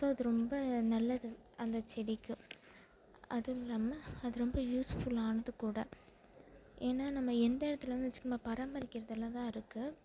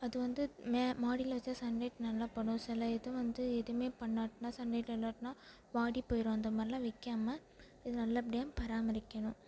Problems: constant background noise, background conversations at intervals